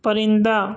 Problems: constant background noise